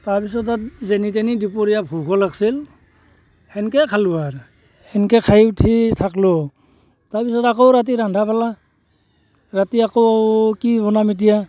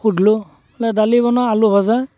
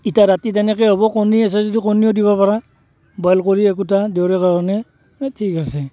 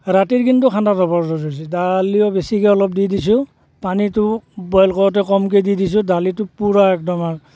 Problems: constant background noise